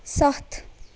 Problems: constant background noise